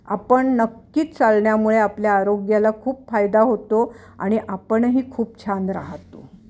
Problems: constant background noise, continuous background conversations